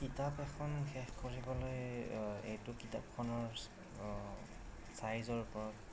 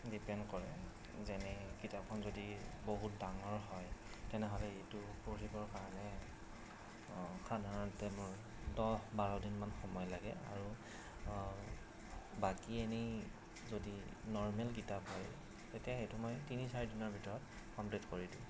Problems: constant background noise, low volume